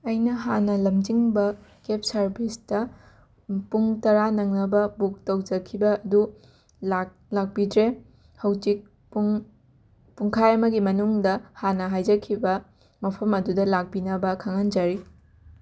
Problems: background sounds at intervals